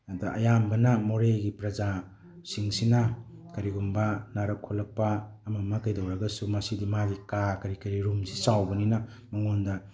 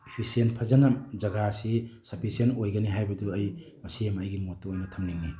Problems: none marked